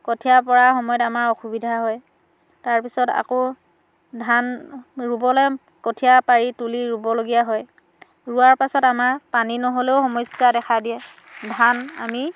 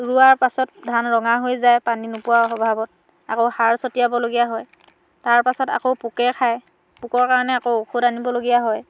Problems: background sounds at intervals, background conversations at intervals